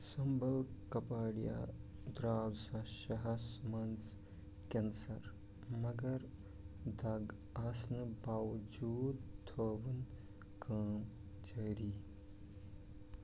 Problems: none marked